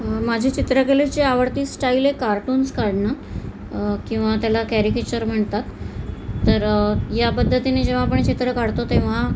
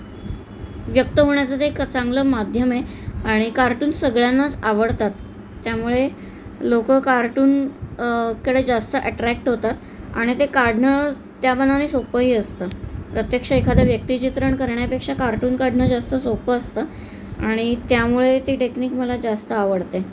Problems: constant background noise